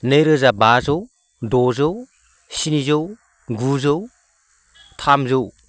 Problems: low volume